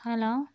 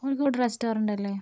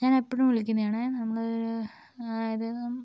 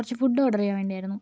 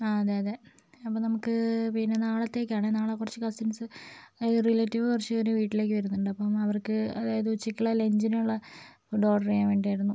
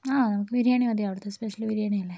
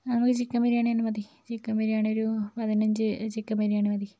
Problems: low volume